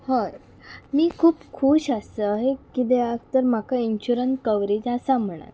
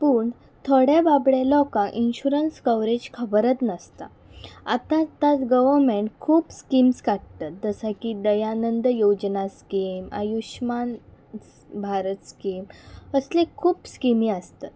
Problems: background sounds at intervals